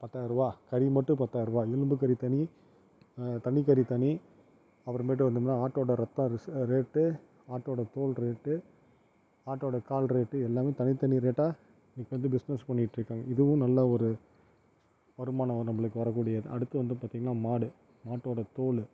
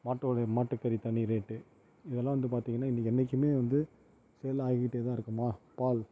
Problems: none marked